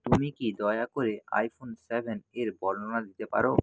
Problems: background sounds at intervals